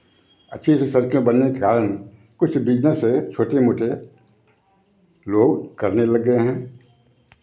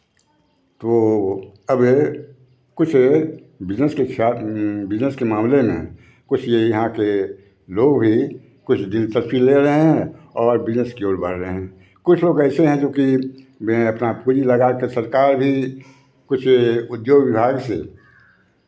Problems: constant background noise